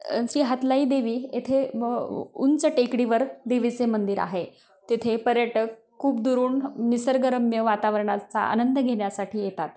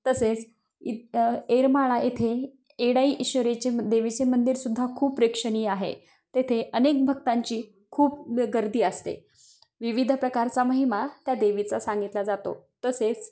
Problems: constant background noise